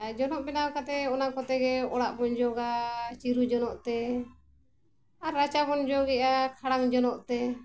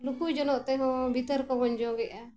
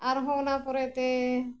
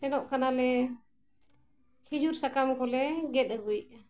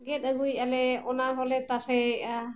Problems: none marked